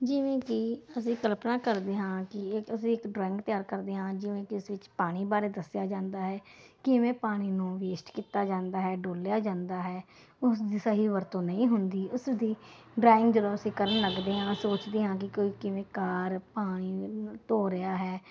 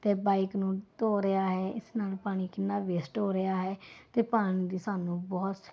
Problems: none marked